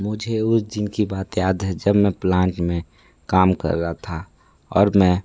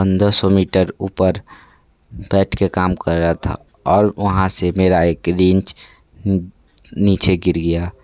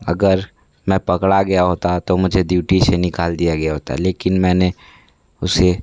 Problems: none marked